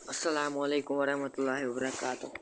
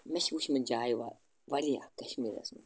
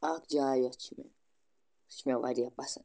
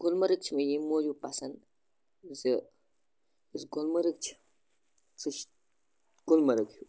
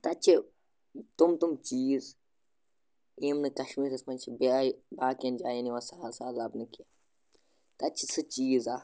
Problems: constant background noise